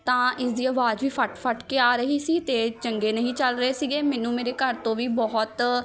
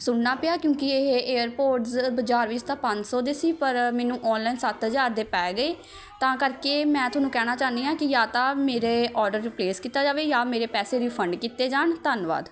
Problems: continuous background conversations